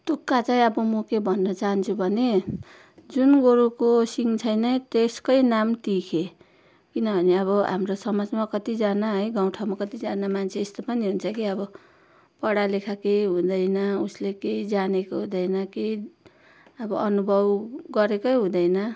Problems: constant background noise